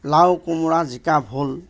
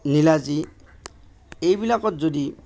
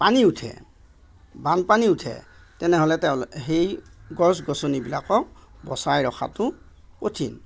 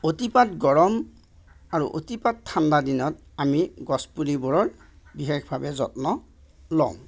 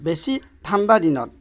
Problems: none marked